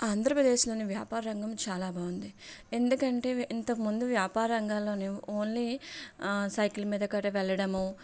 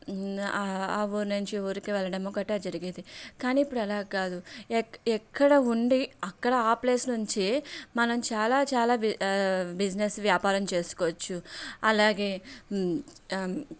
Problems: background sounds at intervals